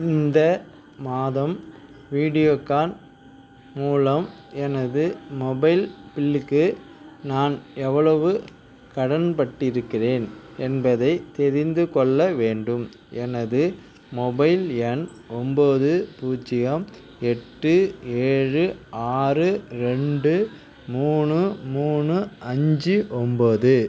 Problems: none marked